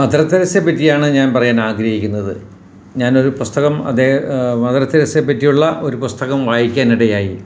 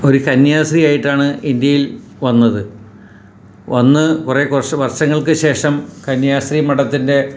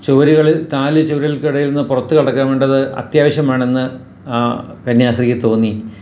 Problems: none marked